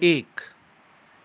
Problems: continuous background conversations